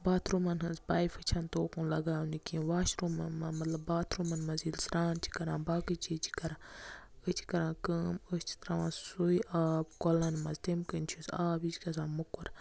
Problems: none marked